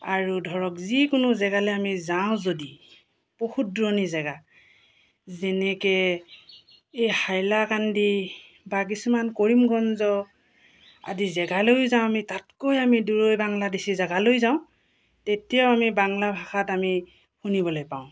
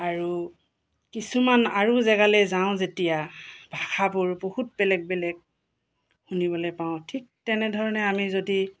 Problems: none marked